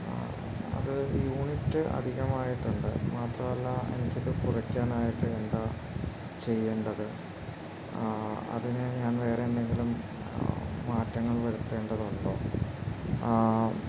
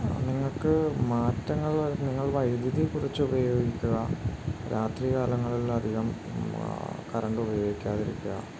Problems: constant background noise